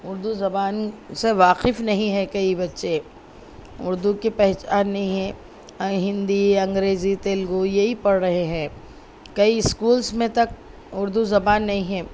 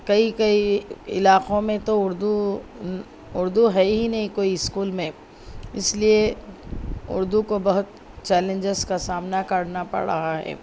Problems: none marked